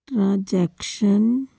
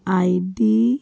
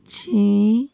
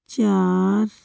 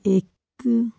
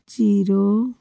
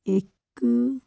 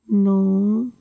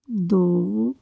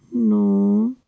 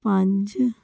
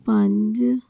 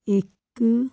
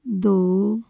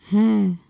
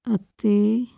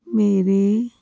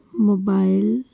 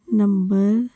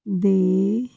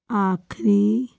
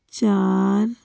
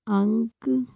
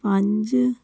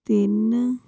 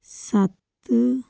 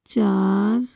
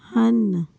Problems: none marked